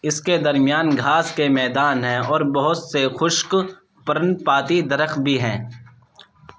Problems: background sounds at intervals